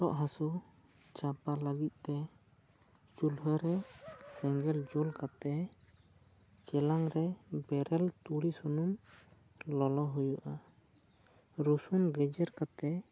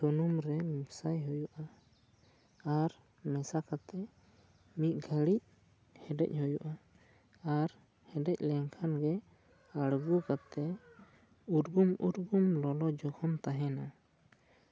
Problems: low volume